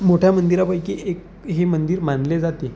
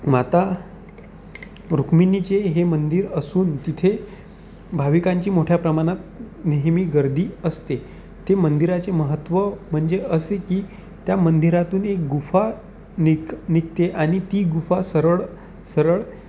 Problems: constant background noise